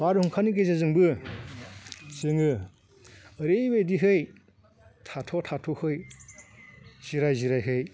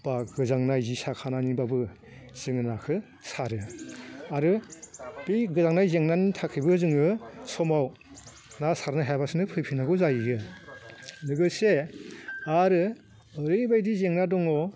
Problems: constant background noise